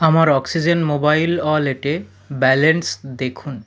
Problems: none marked